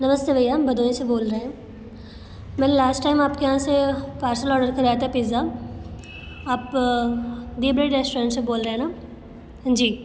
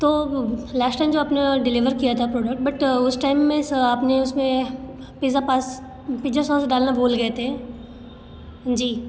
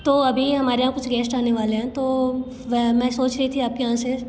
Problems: none marked